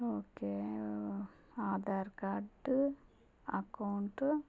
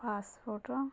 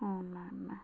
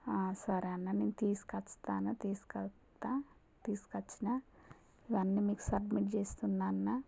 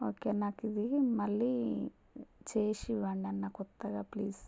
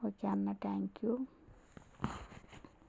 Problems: low volume